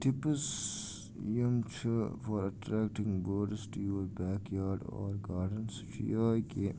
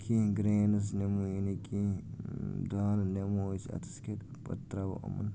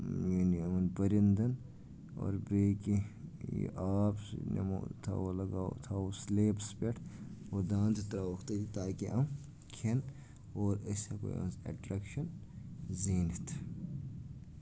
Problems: constant background noise, low volume